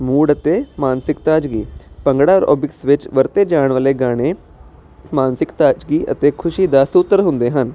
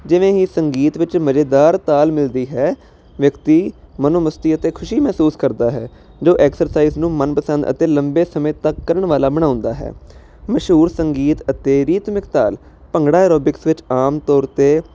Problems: constant background noise